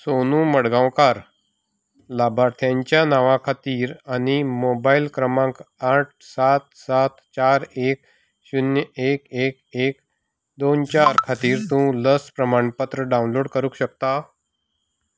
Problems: background sounds at intervals